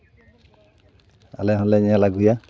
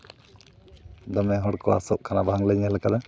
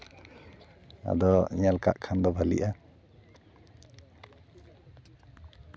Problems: background sounds at intervals